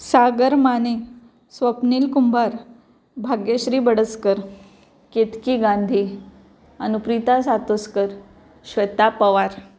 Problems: none marked